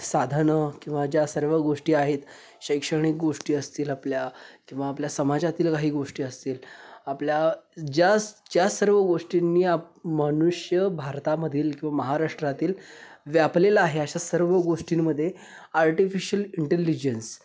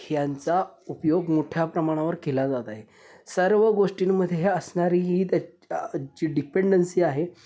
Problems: background sounds at intervals